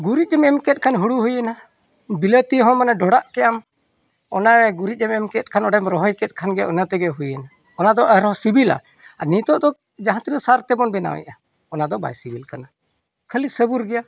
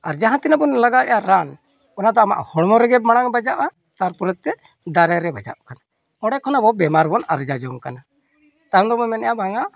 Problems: background sounds at intervals